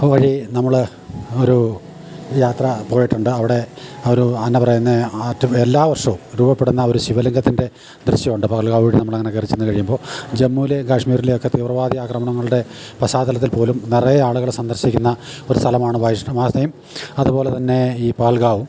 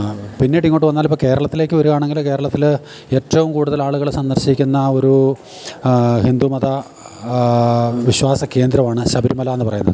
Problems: background sounds at intervals